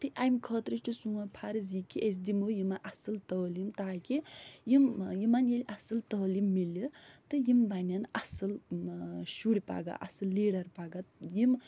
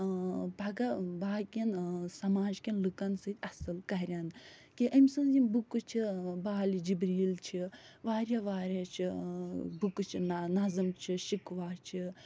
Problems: none marked